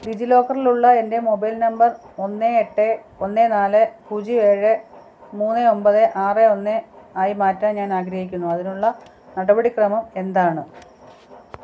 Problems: low volume